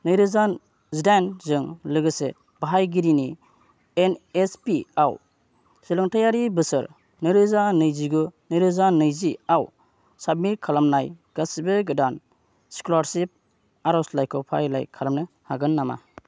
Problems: low volume